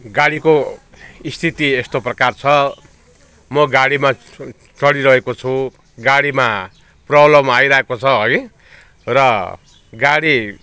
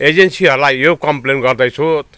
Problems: background conversations at intervals